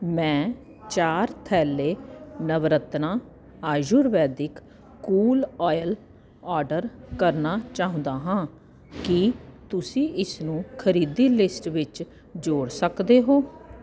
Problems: constant background noise